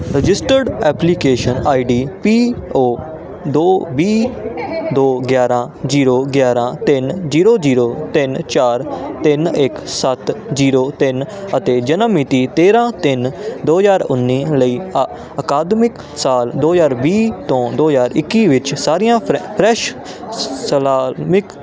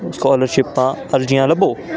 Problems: constant background noise